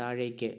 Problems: none marked